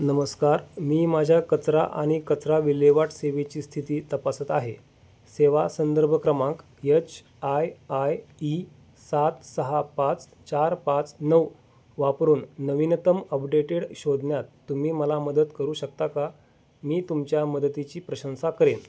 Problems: background sounds at intervals